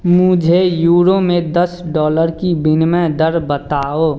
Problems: background sounds at intervals